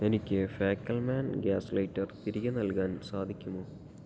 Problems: low volume